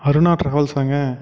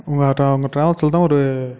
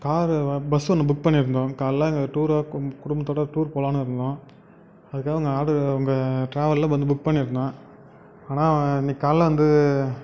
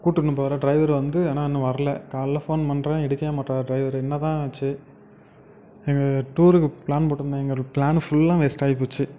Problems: background sounds at intervals